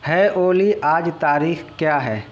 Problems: constant background noise